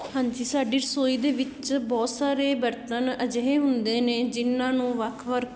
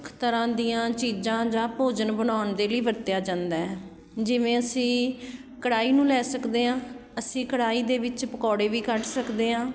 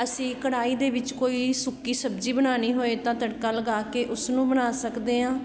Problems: background sounds at intervals